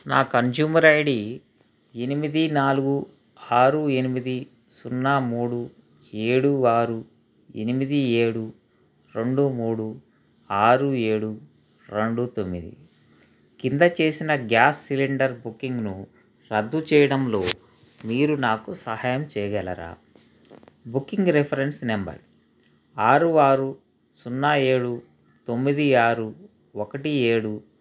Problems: constant background noise